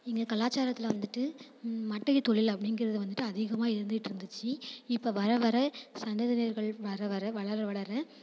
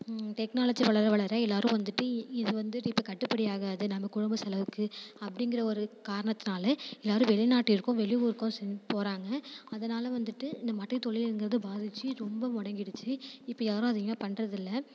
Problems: constant background noise